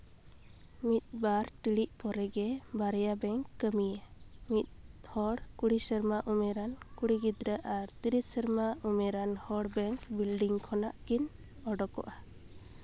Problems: none marked